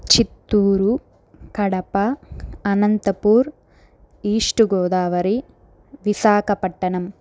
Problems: none marked